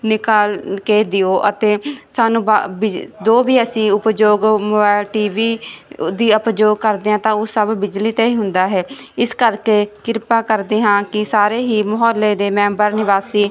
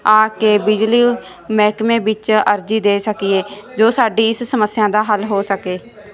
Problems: background sounds at intervals